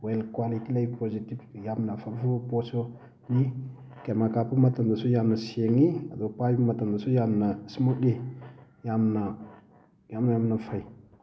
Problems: constant background noise